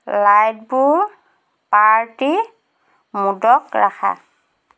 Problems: constant background noise